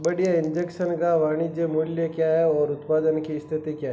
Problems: constant background noise